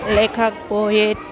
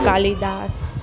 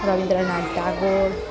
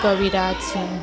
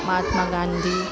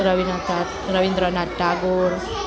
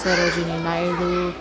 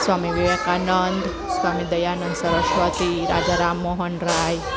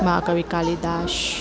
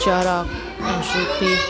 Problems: constant background noise, continuous background conversations